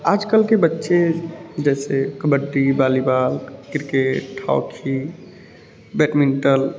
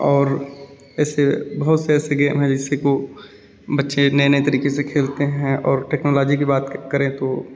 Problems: none marked